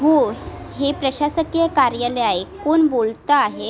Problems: constant background noise, background conversations at intervals